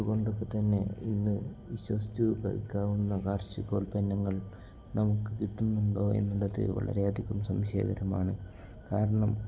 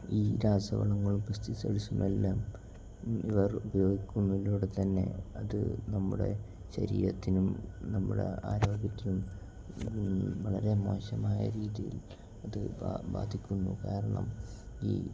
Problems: low volume